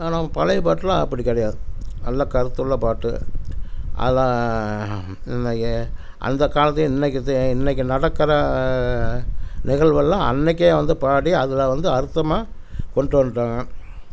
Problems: constant background noise